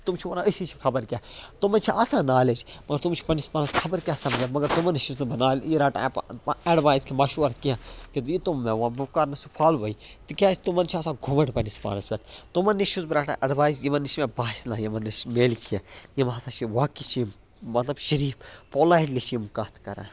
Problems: background sounds at intervals